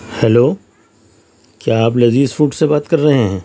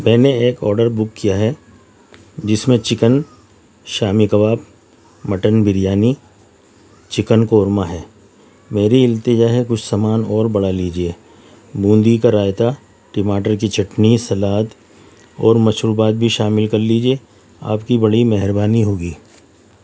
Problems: none marked